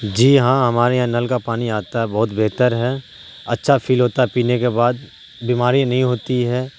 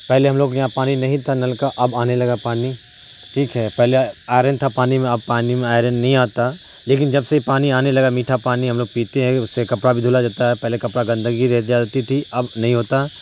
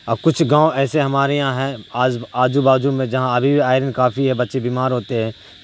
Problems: constant background noise